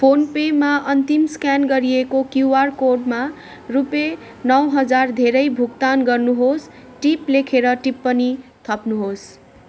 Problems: constant background noise